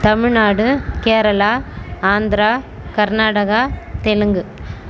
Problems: none marked